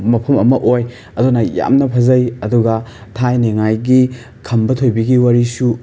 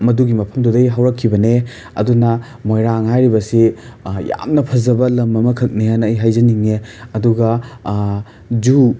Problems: background sounds at intervals